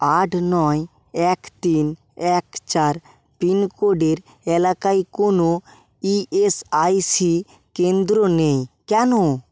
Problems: none marked